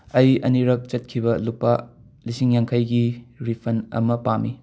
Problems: background sounds at intervals